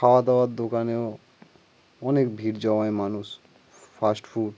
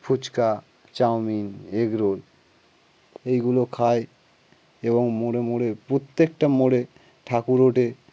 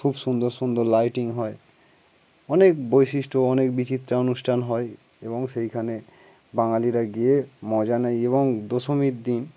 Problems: background sounds at intervals